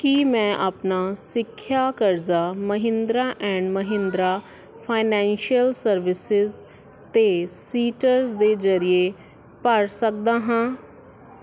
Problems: constant background noise, background conversations at intervals